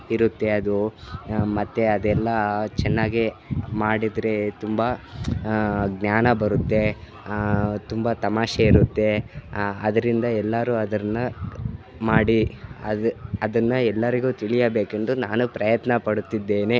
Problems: constant background noise